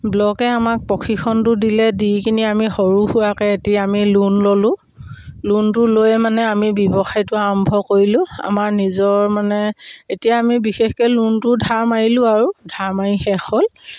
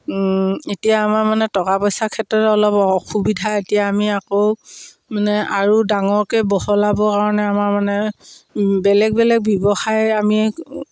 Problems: background sounds at intervals, background conversations at intervals